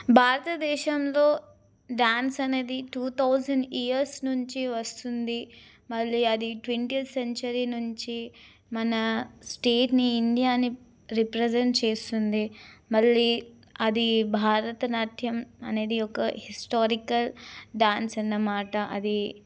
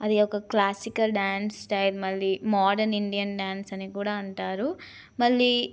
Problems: none marked